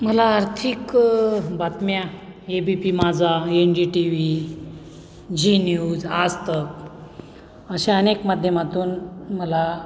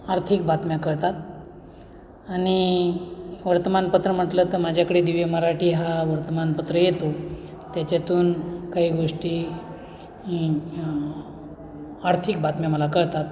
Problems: constant background noise, background conversations at intervals